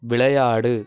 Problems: none marked